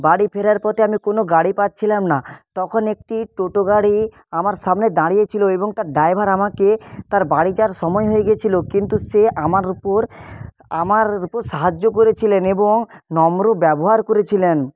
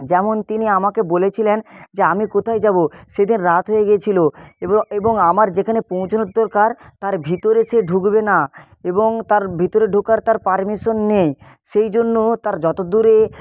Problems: constant background noise